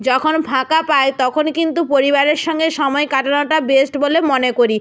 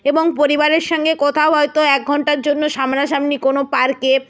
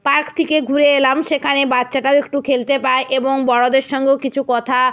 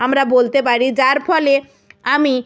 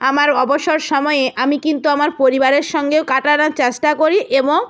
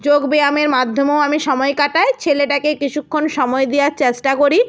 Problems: none marked